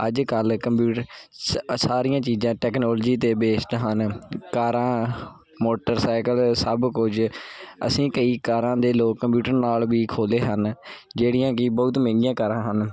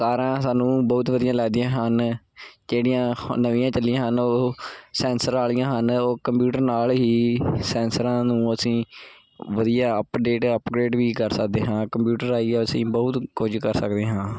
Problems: none marked